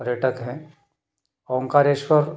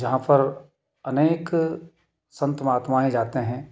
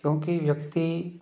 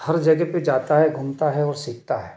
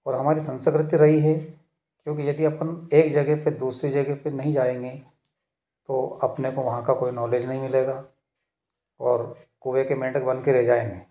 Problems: none marked